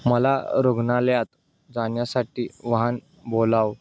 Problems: constant background noise